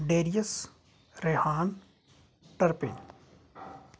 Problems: constant background noise